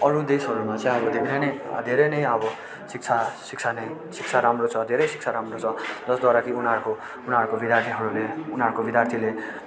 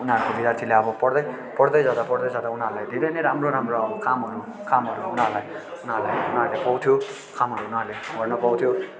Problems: constant background noise